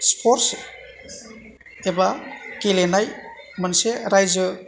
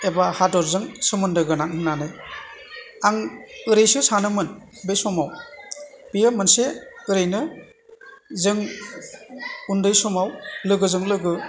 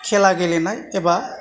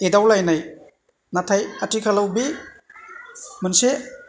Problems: continuous background conversations